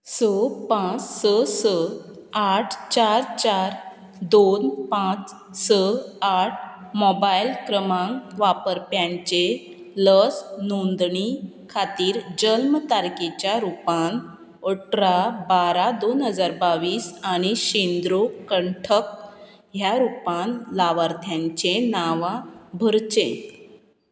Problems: constant background noise